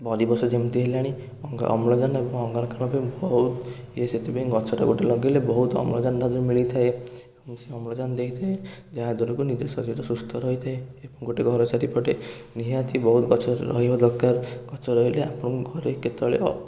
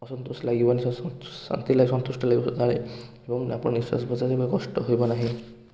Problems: none marked